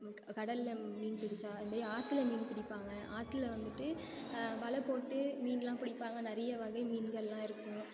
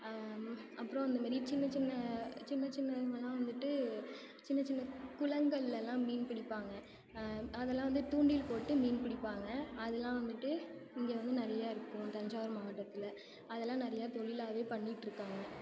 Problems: constant background noise